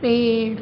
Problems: none marked